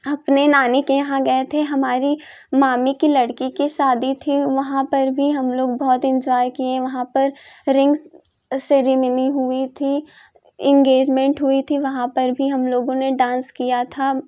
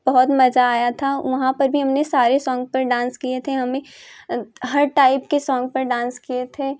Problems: constant background noise